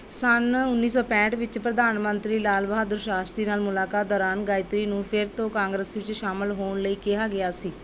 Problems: constant background noise